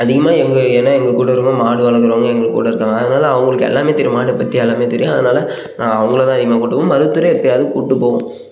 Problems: none marked